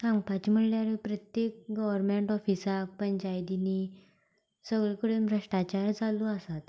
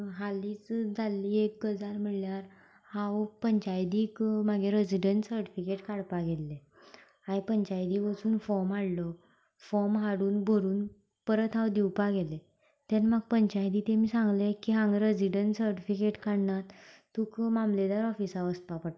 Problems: none marked